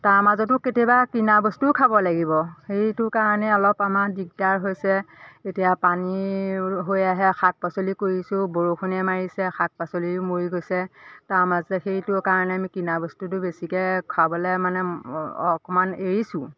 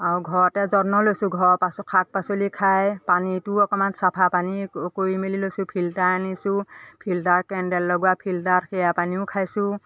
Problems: constant background noise, continuous background conversations